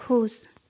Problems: constant background noise